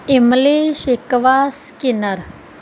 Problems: background sounds at intervals